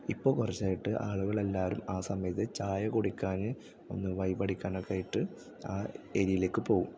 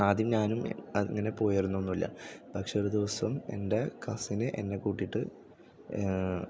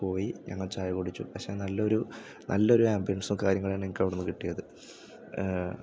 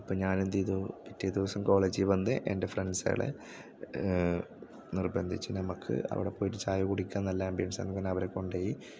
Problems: none marked